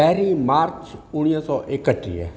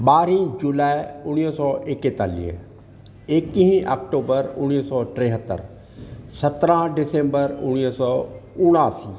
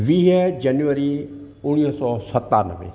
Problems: constant background noise